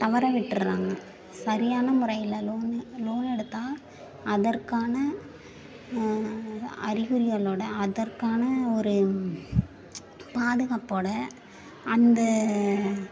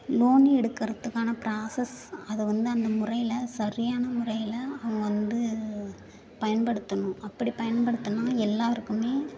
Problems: background sounds at intervals, continuous background conversations